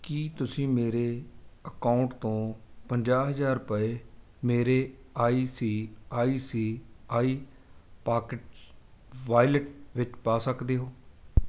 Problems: none marked